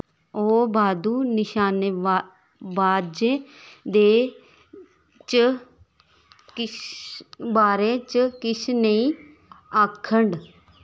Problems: background sounds at intervals